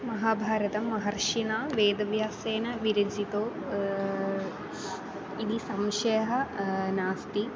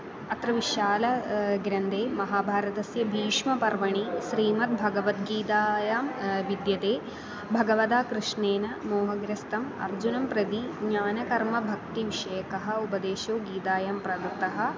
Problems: constant background noise